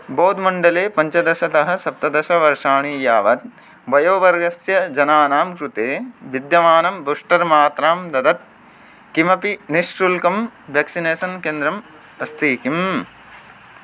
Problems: constant background noise